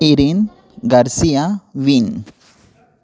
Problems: constant background noise, continuous background conversations